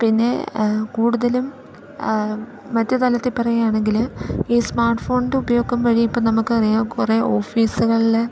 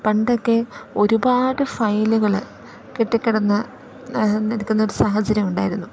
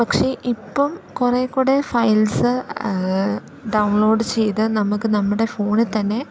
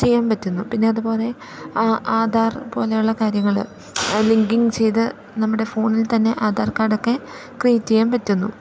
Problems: background sounds at intervals, low volume